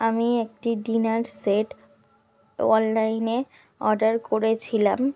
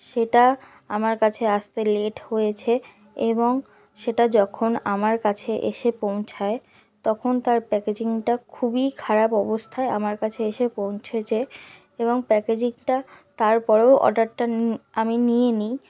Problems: none marked